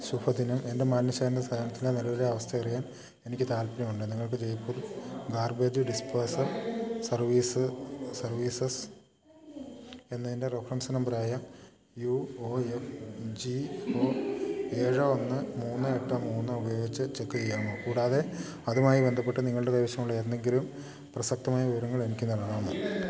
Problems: background sounds at intervals